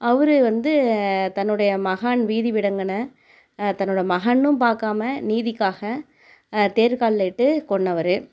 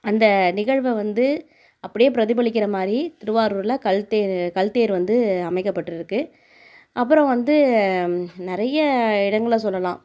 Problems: none marked